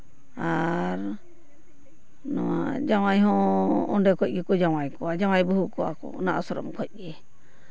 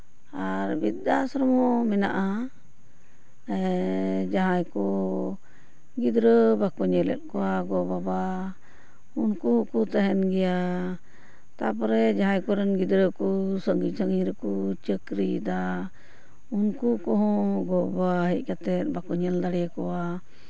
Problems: background sounds at intervals